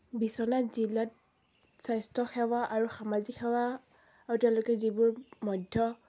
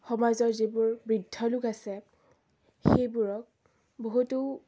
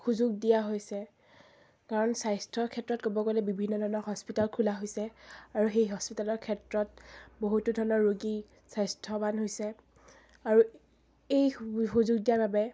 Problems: background sounds at intervals